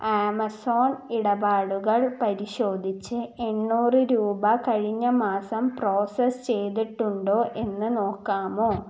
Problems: background sounds at intervals